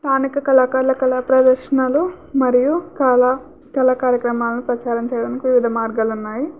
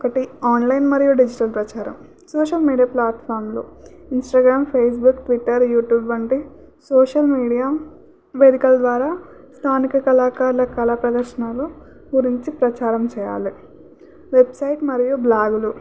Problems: none marked